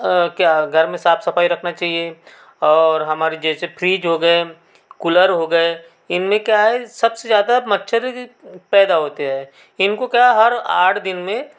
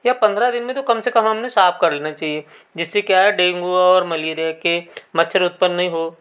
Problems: constant background noise